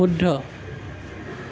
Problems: background sounds at intervals